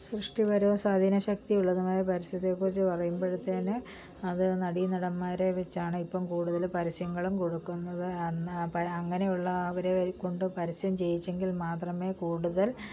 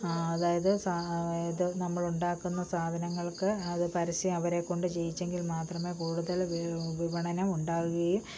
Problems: low volume